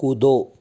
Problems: constant background noise